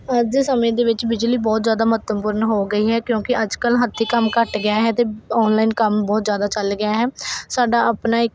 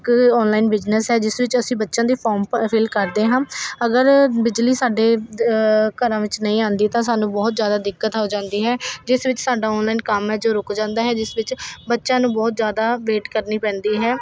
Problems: constant background noise